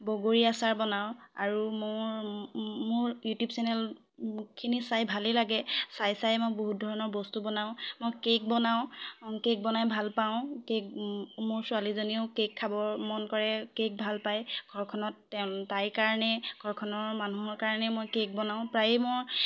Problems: background conversations at intervals